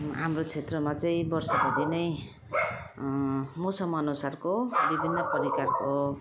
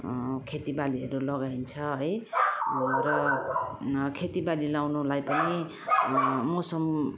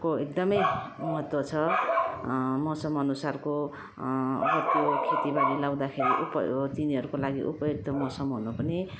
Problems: constant background noise